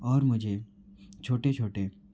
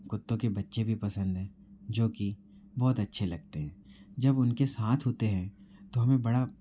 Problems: low volume